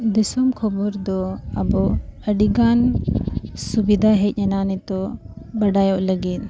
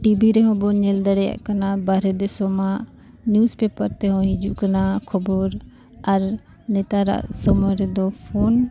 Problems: constant background noise